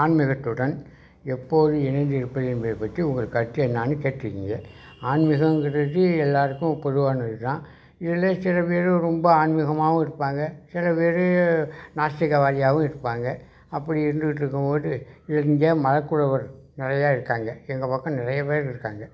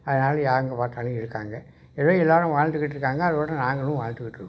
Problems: background sounds at intervals